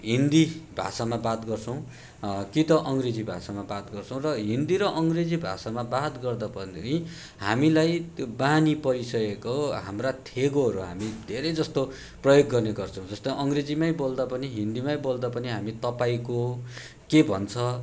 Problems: none marked